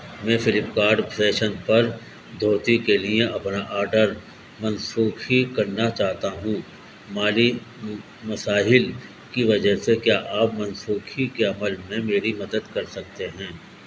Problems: constant background noise